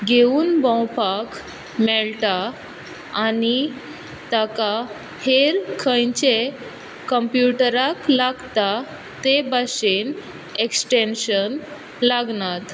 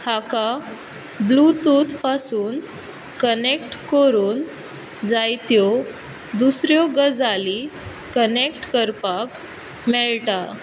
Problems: none marked